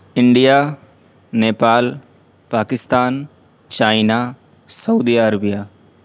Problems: background sounds at intervals